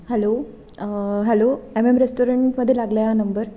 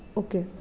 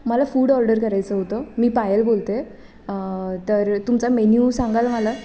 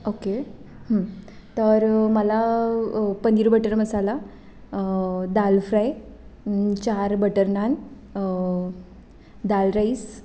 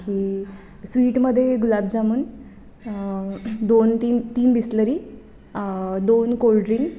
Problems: none marked